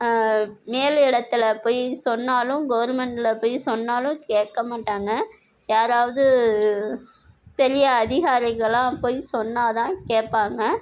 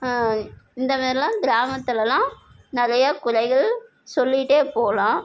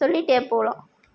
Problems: none marked